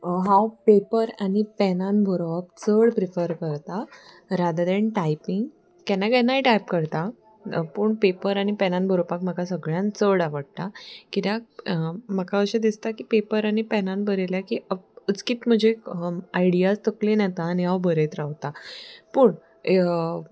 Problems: background sounds at intervals